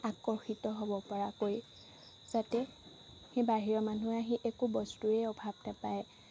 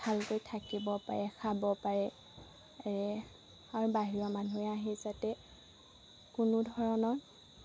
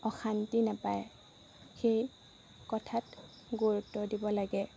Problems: constant background noise